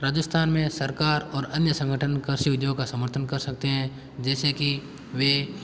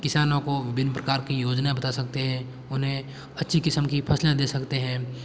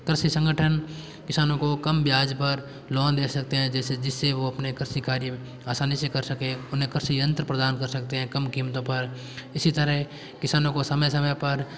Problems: background sounds at intervals